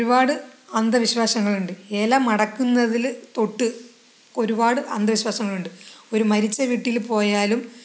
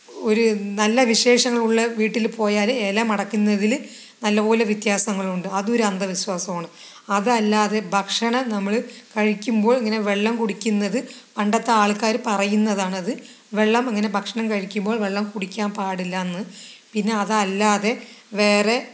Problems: background conversations at intervals